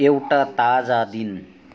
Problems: none marked